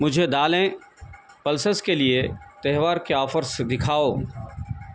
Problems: none marked